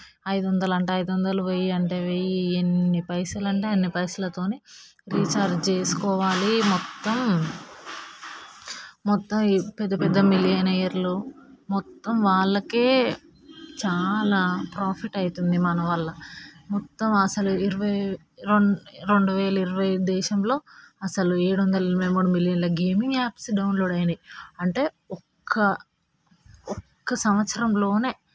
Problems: none marked